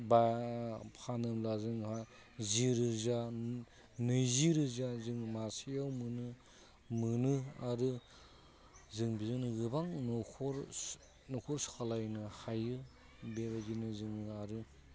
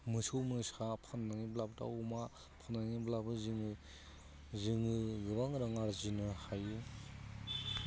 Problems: constant background noise